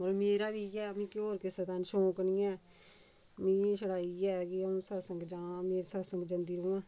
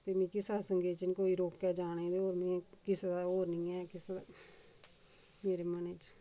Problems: low volume